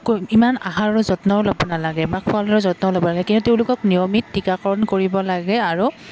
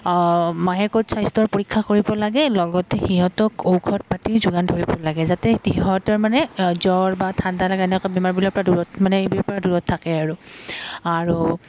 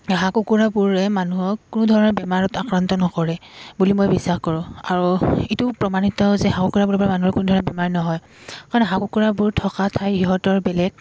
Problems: none marked